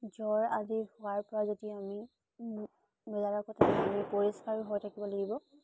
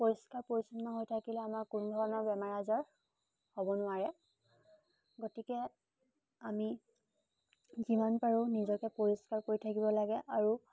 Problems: constant background noise